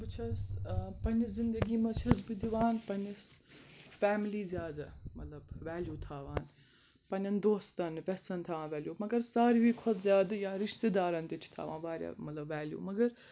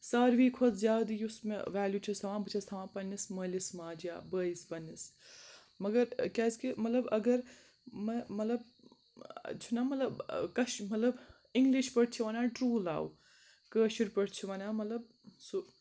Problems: none marked